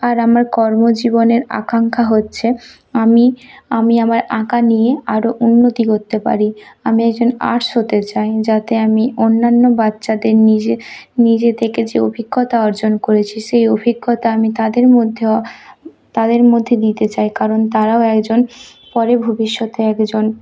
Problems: background sounds at intervals